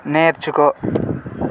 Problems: constant background noise